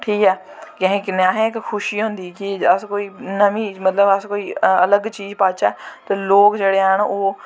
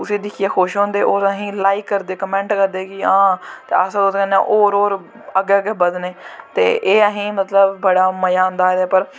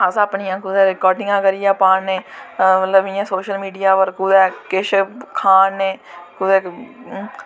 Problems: constant background noise